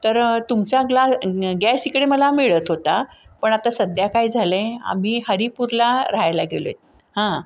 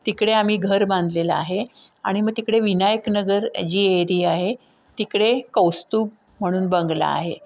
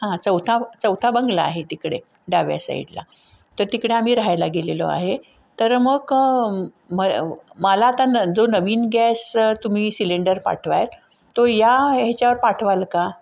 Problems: none marked